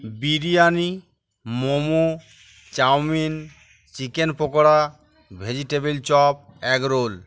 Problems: background sounds at intervals, continuous background conversations